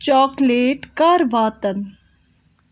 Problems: background sounds at intervals